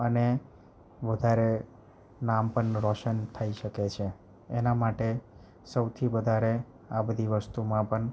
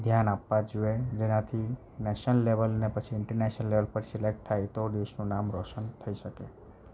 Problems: none marked